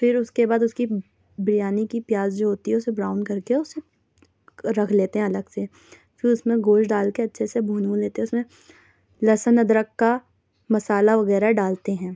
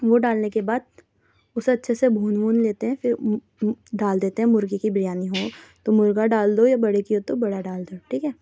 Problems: none marked